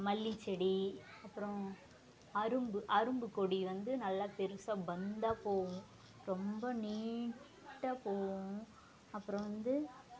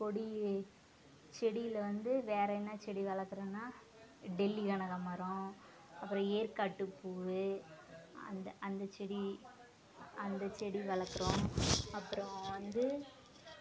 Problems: constant background noise